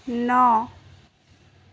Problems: none marked